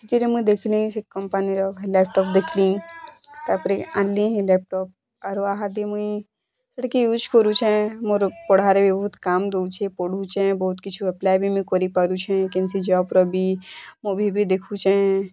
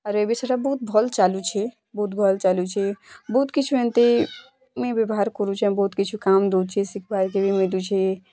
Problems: constant background noise